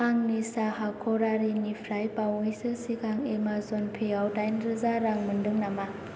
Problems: constant background noise